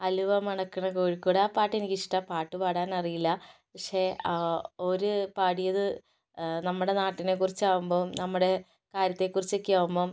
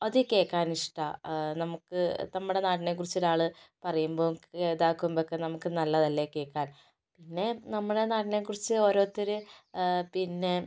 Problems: none marked